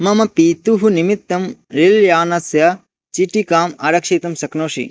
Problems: none marked